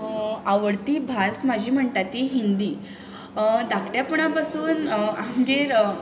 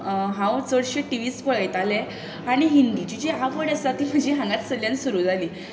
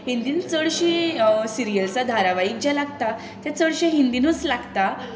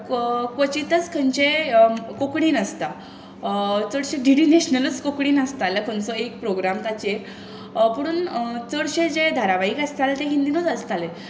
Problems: none marked